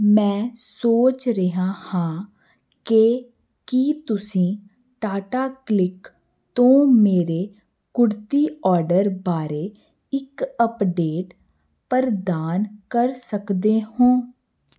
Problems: none marked